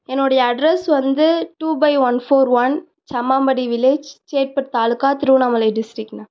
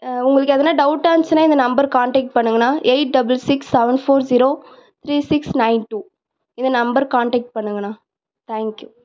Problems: none marked